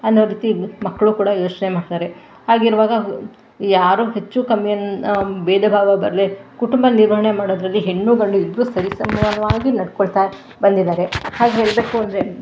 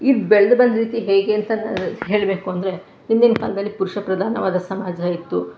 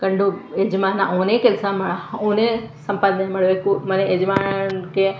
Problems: background sounds at intervals